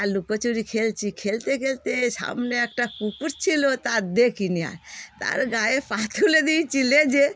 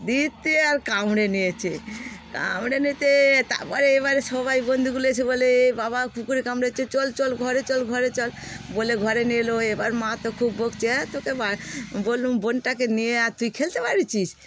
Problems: none marked